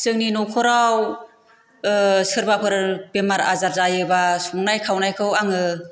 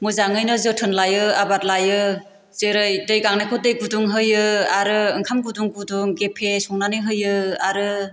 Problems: none marked